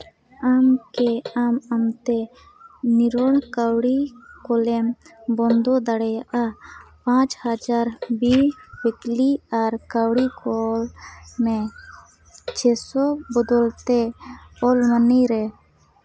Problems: constant background noise